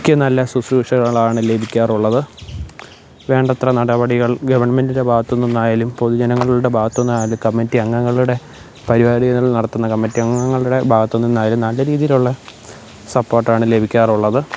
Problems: none marked